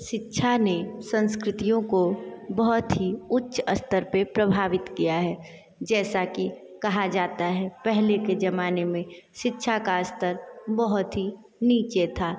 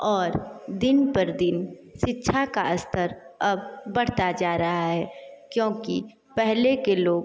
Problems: continuous background conversations